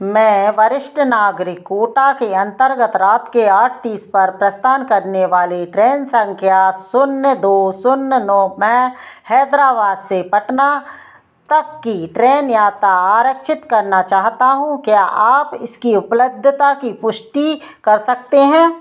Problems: none marked